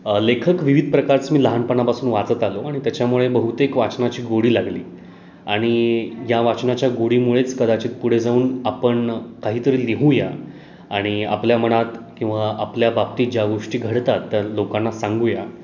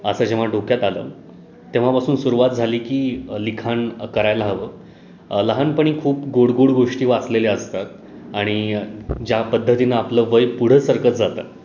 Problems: none marked